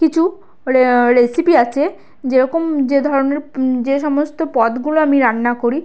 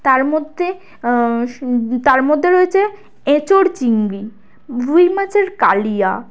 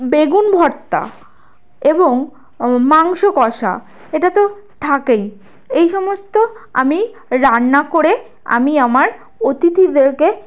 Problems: constant background noise